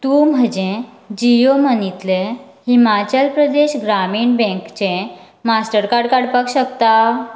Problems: background sounds at intervals